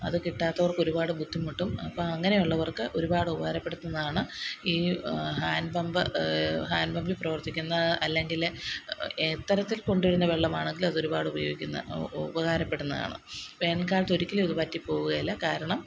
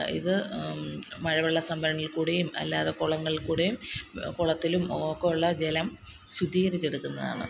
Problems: constant background noise